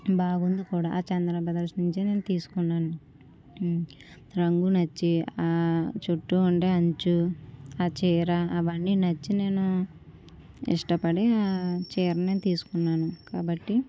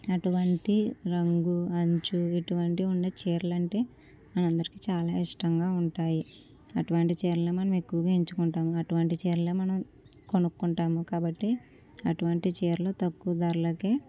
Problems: low volume